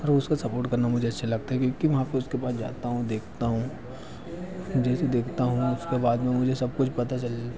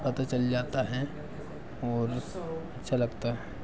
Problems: background sounds at intervals, background conversations at intervals